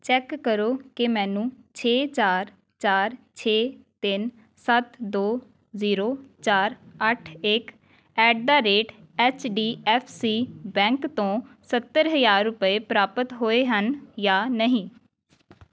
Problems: background sounds at intervals